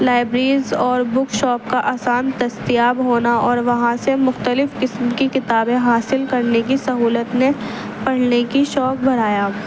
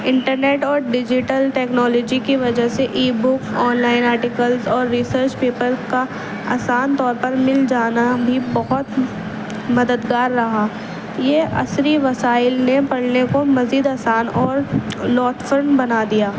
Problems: constant background noise